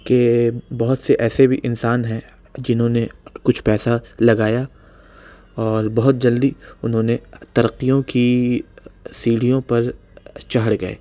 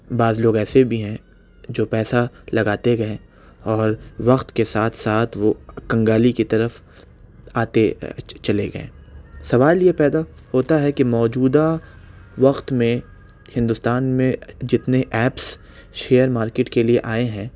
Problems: none marked